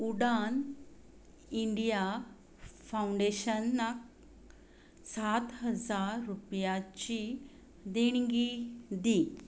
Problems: constant background noise